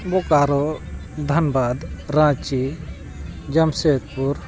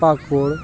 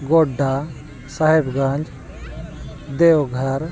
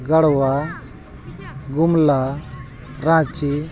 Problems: constant background noise, continuous background conversations